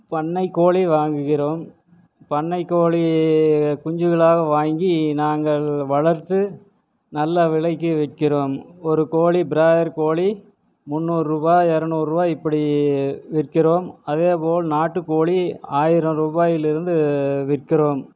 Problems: none marked